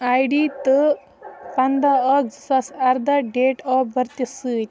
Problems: background sounds at intervals, continuous background conversations